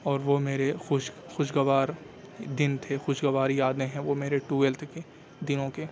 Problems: constant background noise, low volume